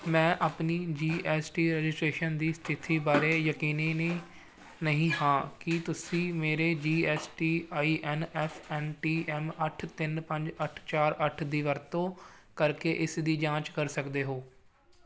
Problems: background sounds at intervals